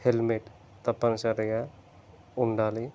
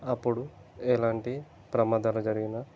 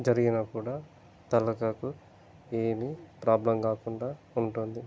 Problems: constant background noise